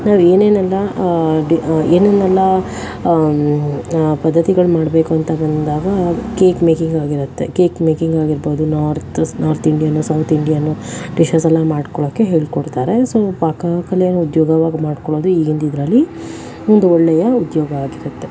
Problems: constant background noise